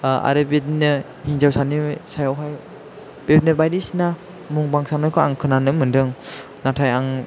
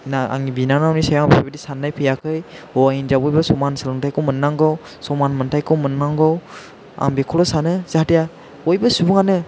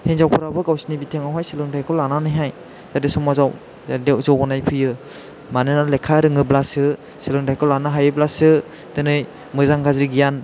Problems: none marked